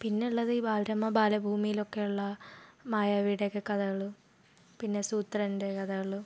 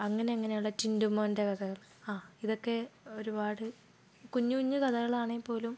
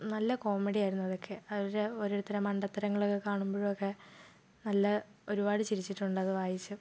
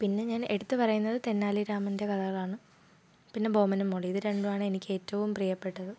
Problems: low volume